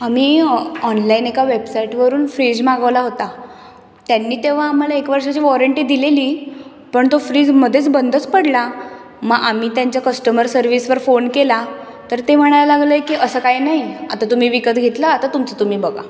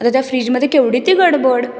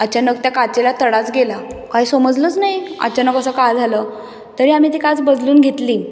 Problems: background sounds at intervals